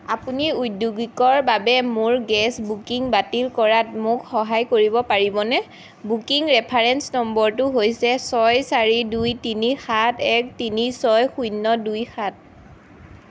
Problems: constant background noise